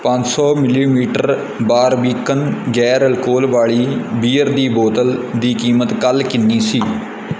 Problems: background sounds at intervals